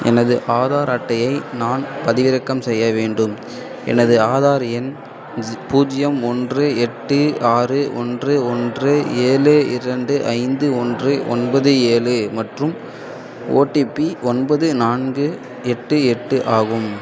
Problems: constant background noise